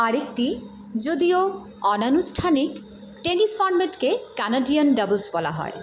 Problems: constant background noise